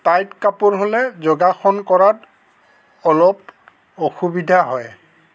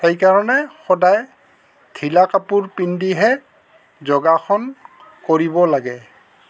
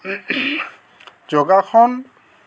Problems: constant background noise, background conversations at intervals